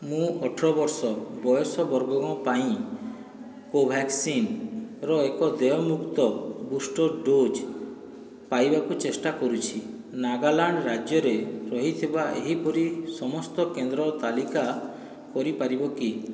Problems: none marked